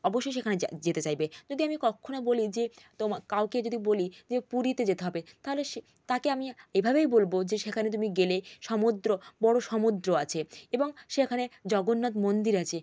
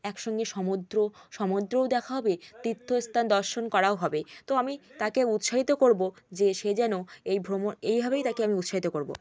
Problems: background conversations at intervals